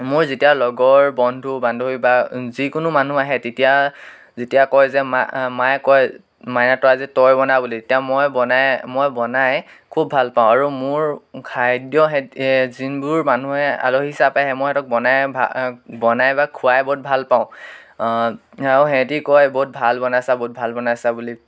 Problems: background sounds at intervals